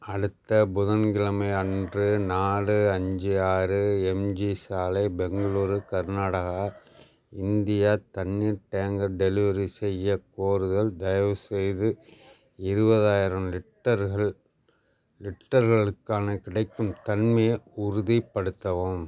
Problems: none marked